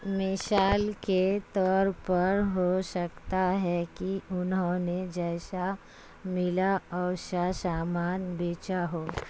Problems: constant background noise